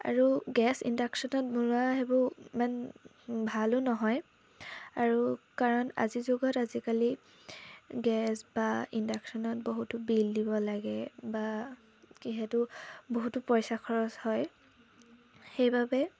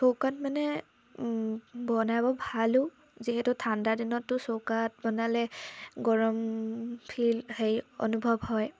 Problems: constant background noise